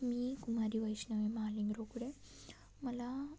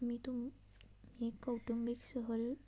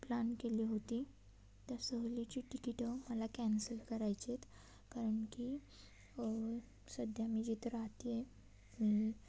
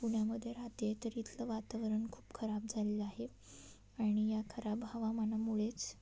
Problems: constant background noise, low volume